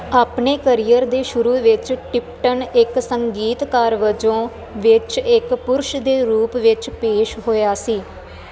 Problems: constant background noise